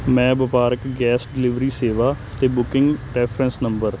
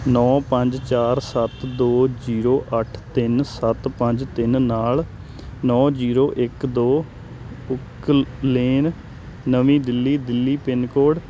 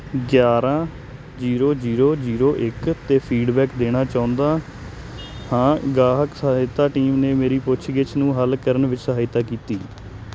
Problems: constant background noise